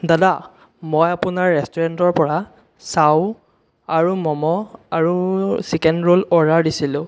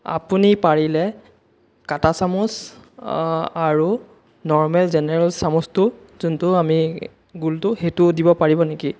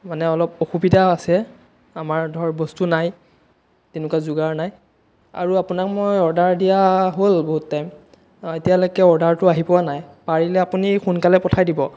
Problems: none marked